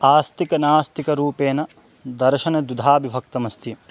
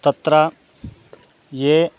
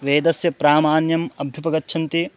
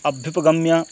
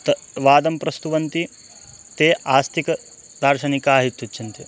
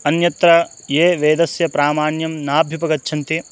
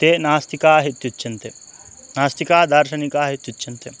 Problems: constant background noise